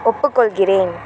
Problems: background sounds at intervals